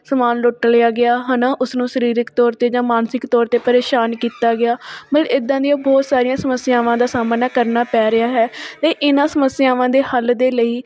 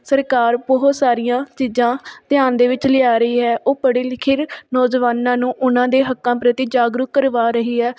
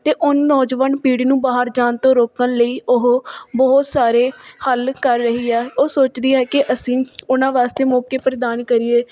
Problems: background sounds at intervals